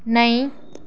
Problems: none marked